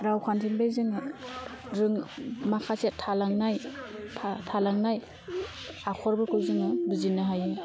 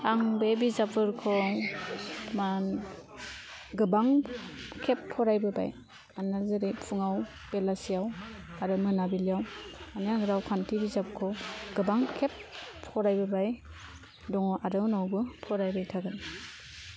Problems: constant background noise